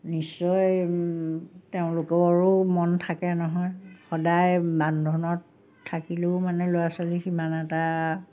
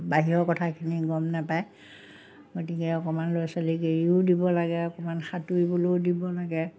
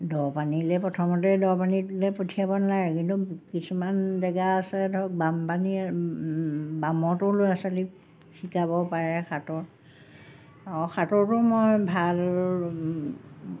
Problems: none marked